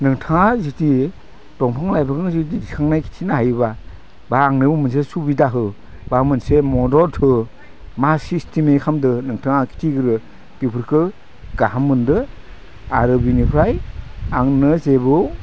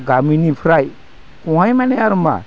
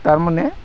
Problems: none marked